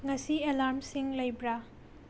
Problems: low volume